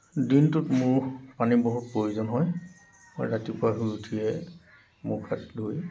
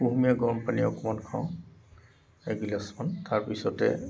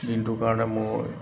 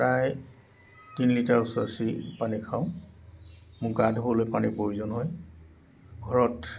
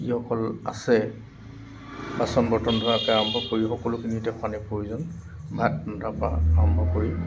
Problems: none marked